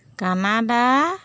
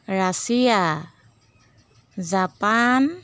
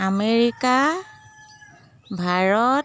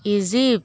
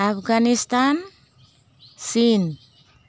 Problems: constant background noise